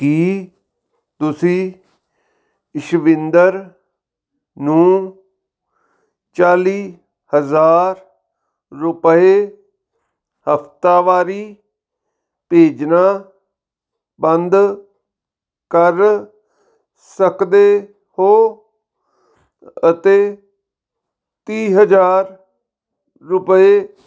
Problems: background sounds at intervals